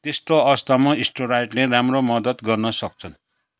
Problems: none marked